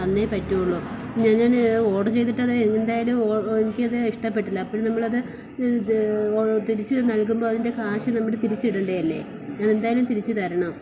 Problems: constant background noise